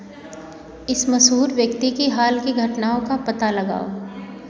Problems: background sounds at intervals